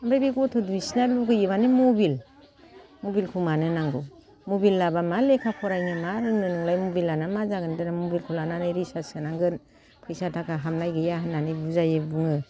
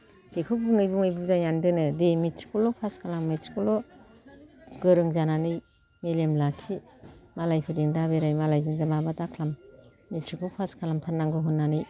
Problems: low volume